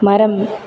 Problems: constant background noise